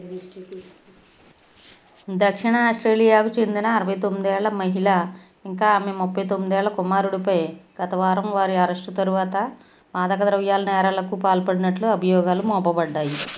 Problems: background conversations at intervals